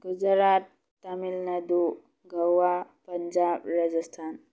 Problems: low volume